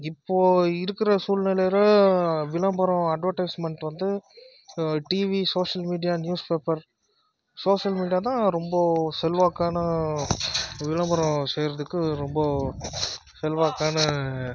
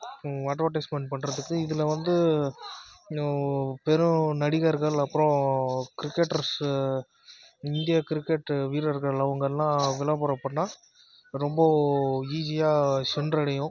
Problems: background sounds at intervals